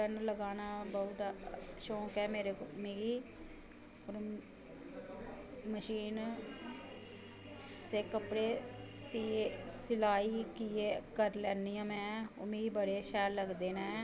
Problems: constant background noise